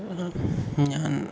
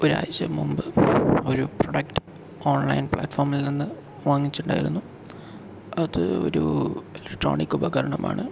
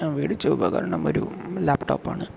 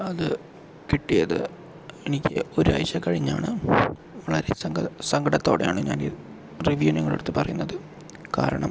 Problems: low volume